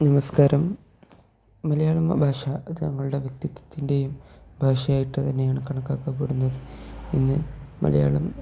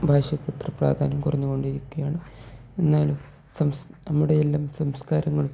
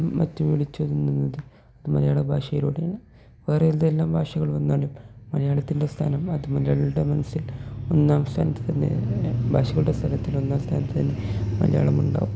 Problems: low volume